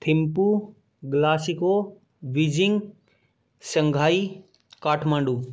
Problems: background sounds at intervals